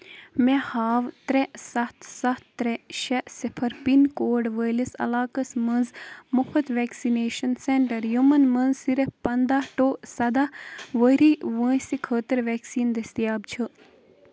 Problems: constant background noise